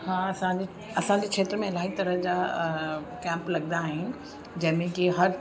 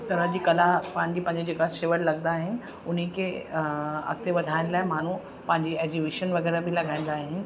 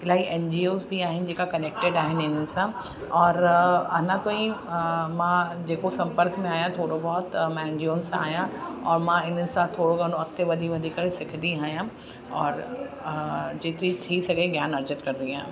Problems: constant background noise